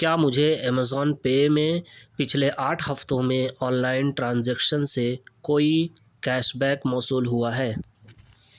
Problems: none marked